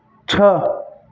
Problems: background sounds at intervals